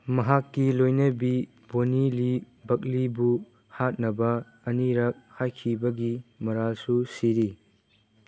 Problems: background sounds at intervals